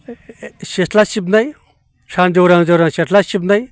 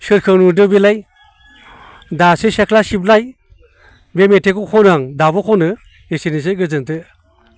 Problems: none marked